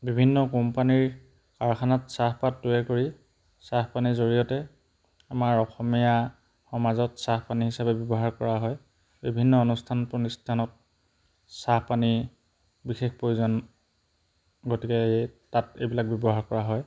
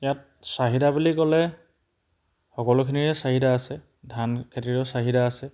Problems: background sounds at intervals